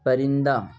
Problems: background sounds at intervals